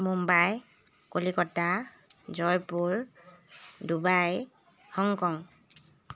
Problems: none marked